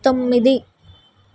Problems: background sounds at intervals